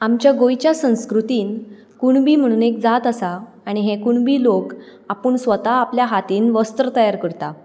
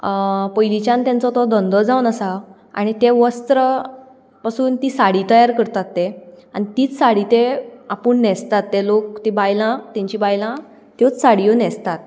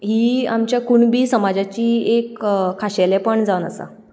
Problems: background sounds at intervals